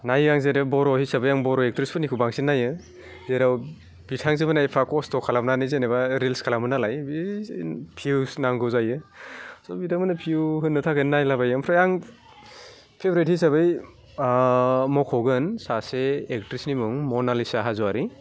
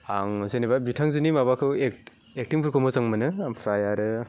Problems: none marked